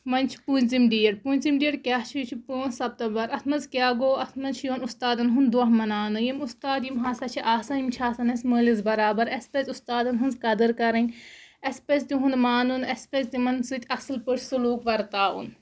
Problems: background sounds at intervals